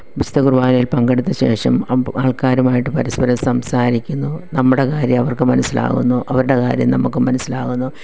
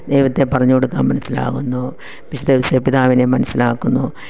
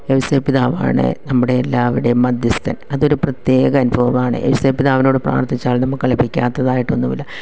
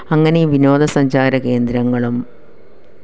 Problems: none marked